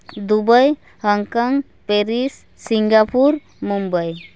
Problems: constant background noise